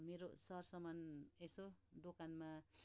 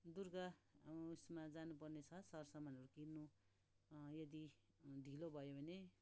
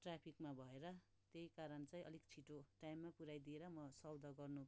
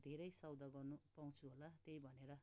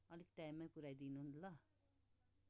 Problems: none marked